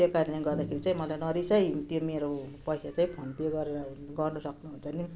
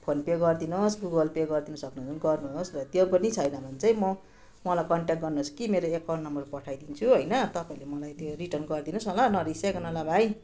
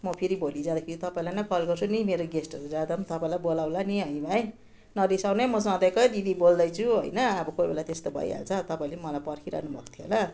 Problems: continuous background conversations